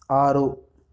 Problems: background sounds at intervals